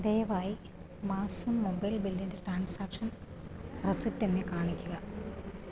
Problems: low volume